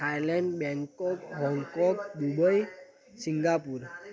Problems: constant background noise